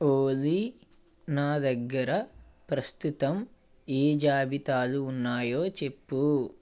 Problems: none marked